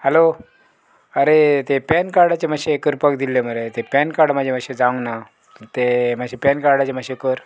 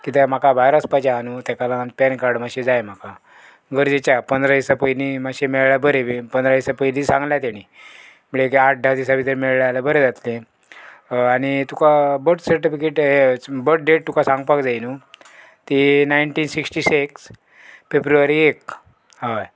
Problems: background sounds at intervals